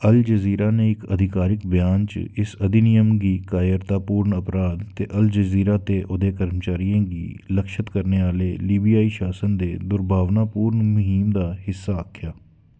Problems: none marked